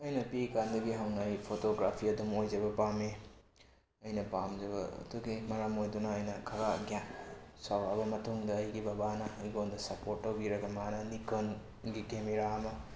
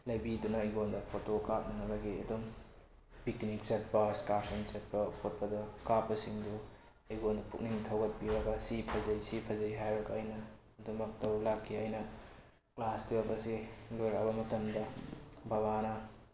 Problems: constant background noise